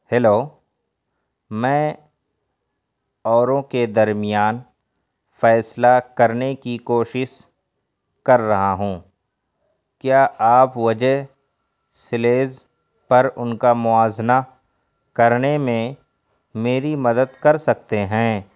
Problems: none marked